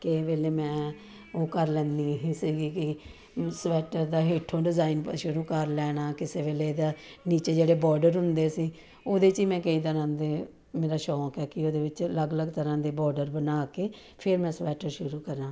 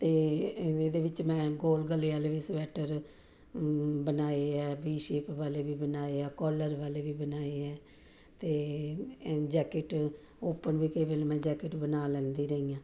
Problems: background conversations at intervals